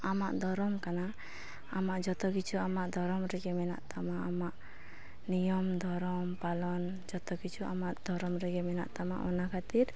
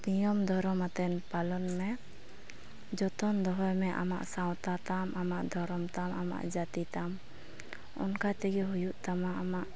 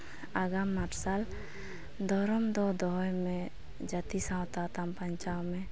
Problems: none marked